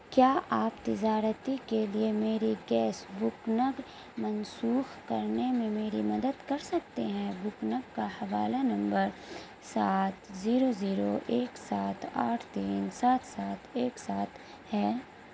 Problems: constant background noise